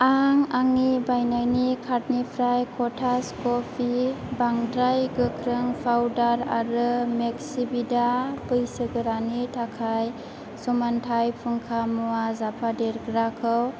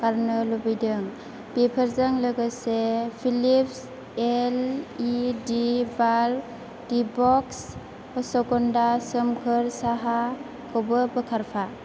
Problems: constant background noise